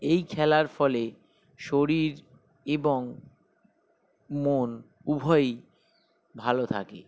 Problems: background sounds at intervals